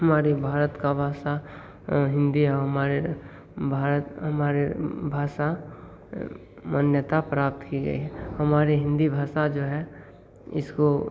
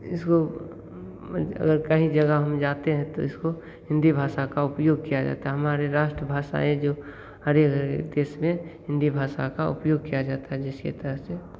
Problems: constant background noise, echo